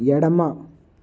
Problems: none marked